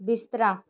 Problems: none marked